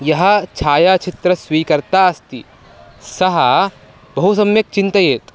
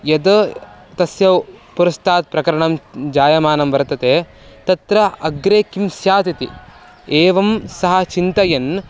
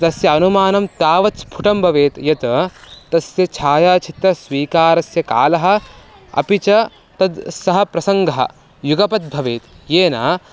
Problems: constant background noise, background conversations at intervals